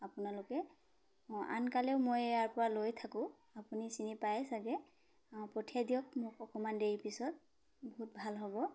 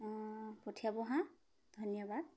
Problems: background sounds at intervals